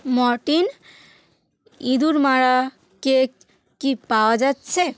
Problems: none marked